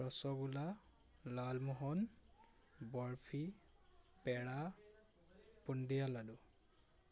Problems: none marked